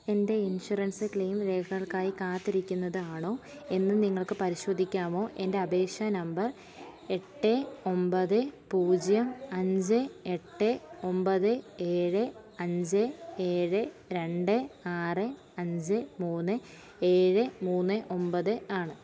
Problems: low volume